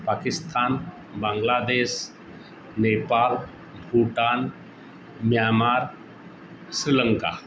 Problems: constant background noise